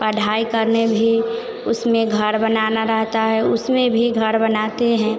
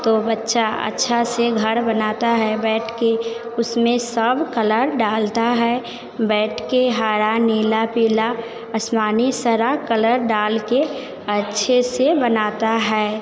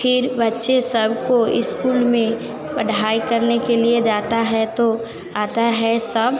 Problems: none marked